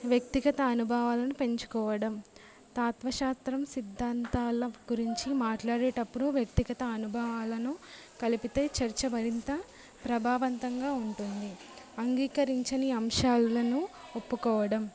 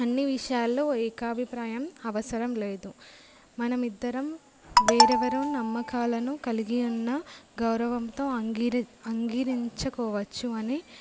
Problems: none marked